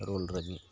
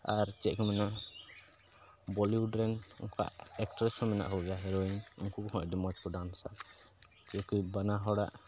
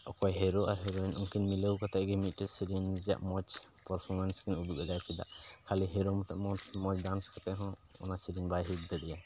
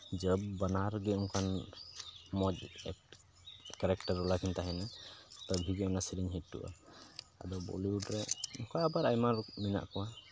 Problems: constant background noise